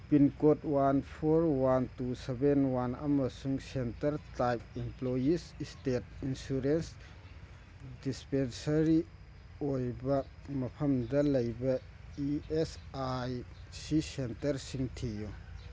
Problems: background sounds at intervals